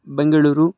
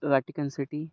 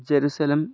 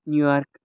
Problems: none marked